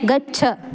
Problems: constant background noise, continuous background conversations